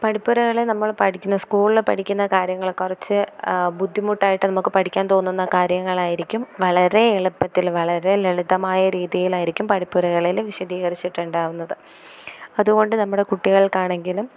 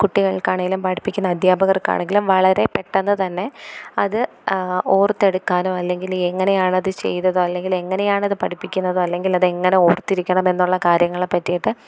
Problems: none marked